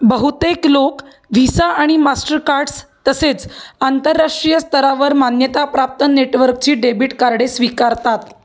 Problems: none marked